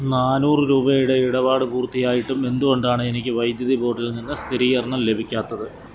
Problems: constant background noise